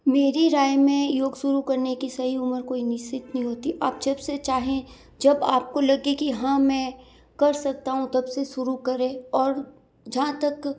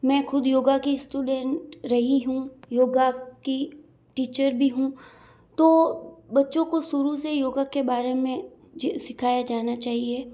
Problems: background sounds at intervals